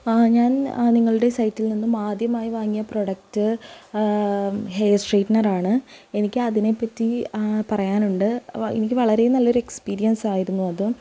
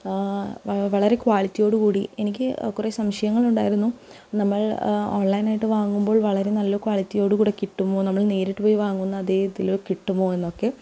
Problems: none marked